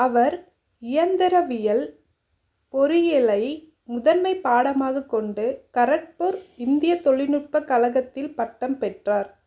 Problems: none marked